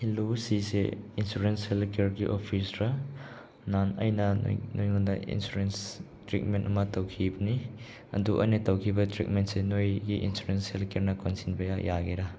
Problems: none marked